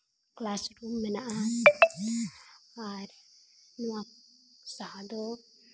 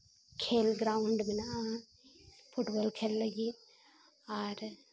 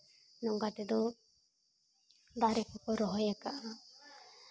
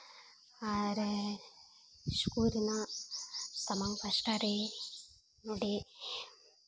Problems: background sounds at intervals